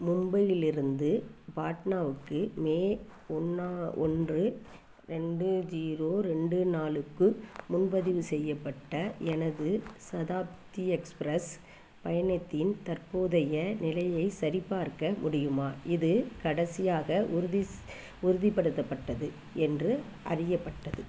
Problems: background sounds at intervals